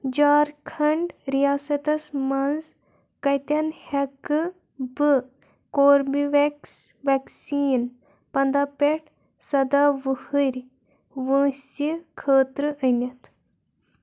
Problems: constant background noise